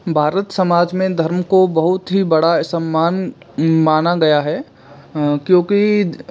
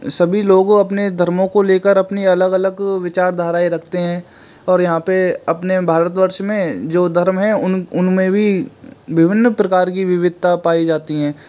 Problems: background sounds at intervals